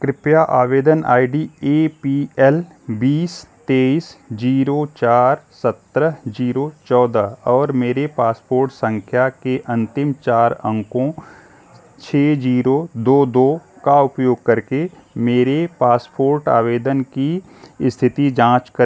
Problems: none marked